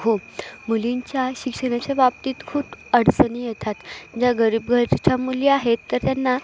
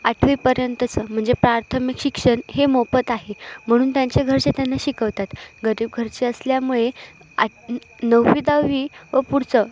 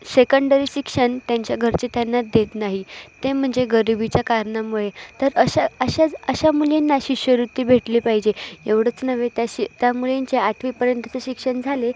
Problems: none marked